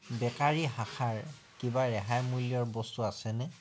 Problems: background sounds at intervals